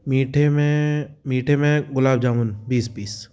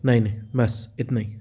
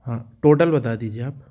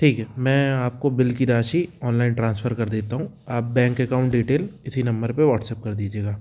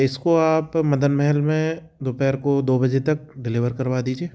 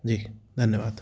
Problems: background sounds at intervals